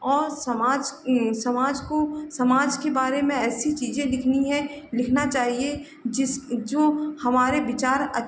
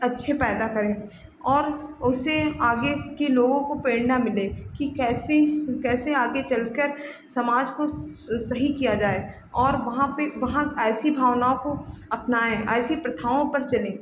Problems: background sounds at intervals